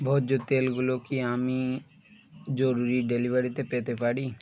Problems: constant background noise